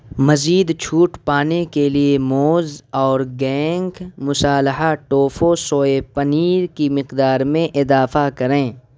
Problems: constant background noise